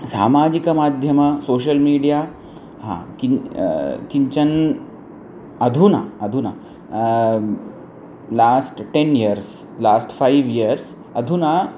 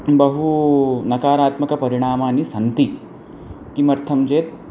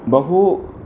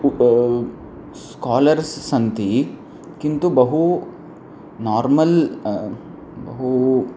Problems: constant background noise